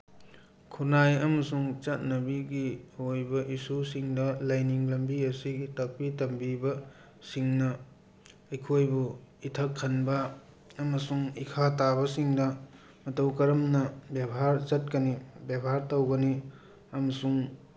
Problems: background conversations at intervals